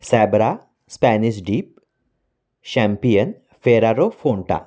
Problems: none marked